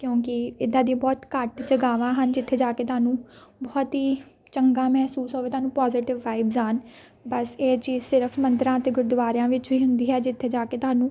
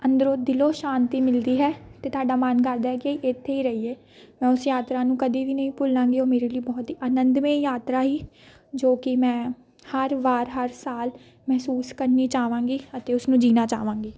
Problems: background sounds at intervals, background conversations at intervals